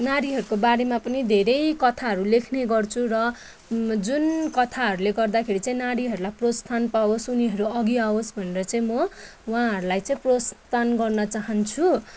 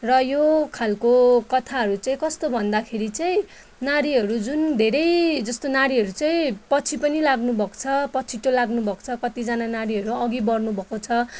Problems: none marked